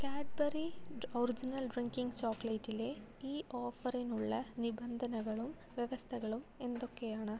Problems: low volume